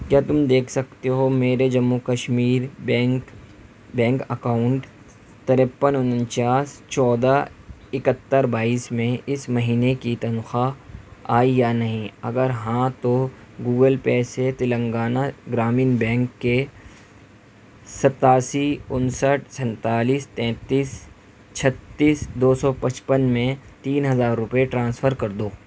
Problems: constant background noise